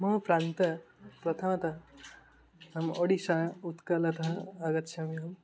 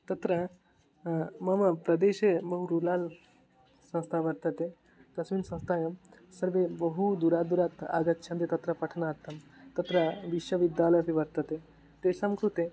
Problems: background sounds at intervals